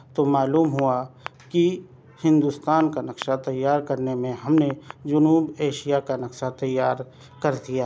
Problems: background sounds at intervals